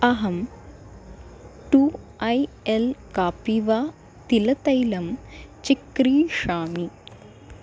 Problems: constant background noise